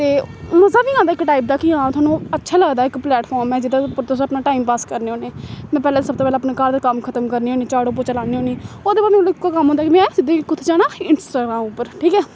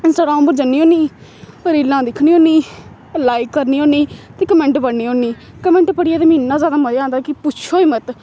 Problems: constant background noise